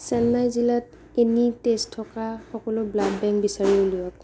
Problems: background sounds at intervals